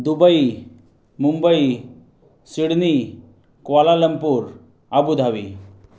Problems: background sounds at intervals